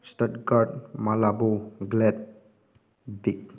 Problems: none marked